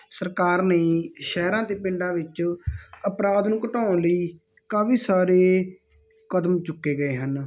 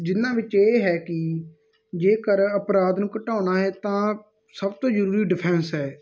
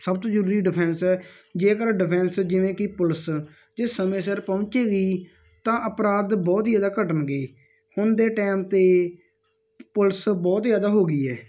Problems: none marked